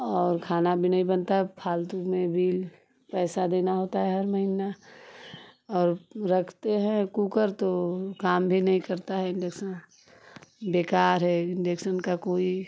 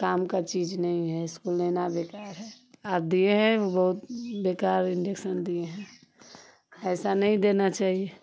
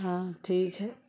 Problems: none marked